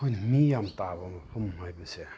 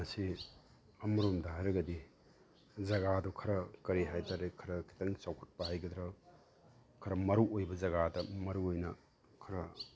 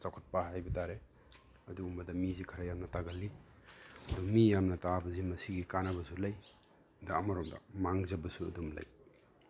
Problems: background sounds at intervals